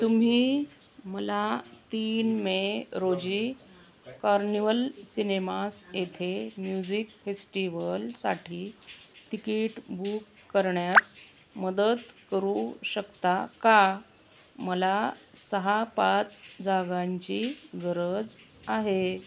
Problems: none marked